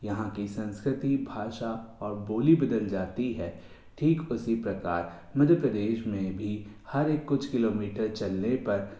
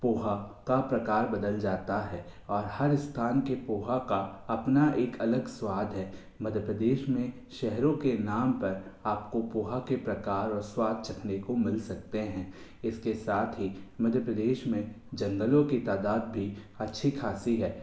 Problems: constant background noise, echo